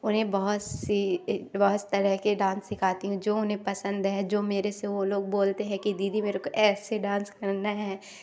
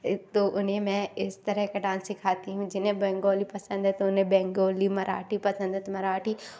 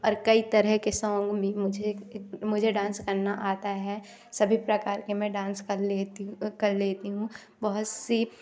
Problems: none marked